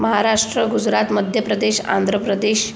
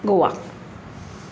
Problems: none marked